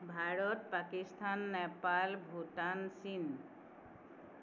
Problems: none marked